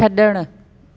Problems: constant background noise